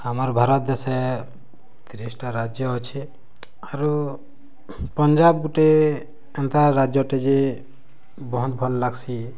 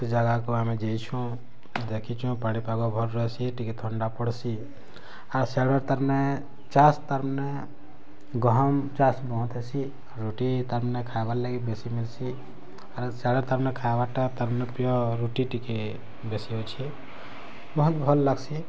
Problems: low volume